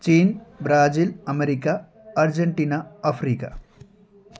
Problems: background sounds at intervals